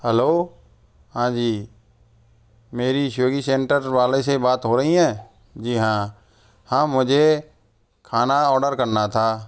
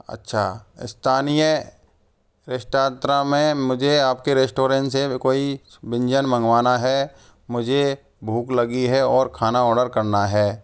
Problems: background sounds at intervals